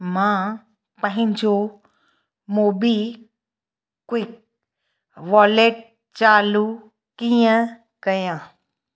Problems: echo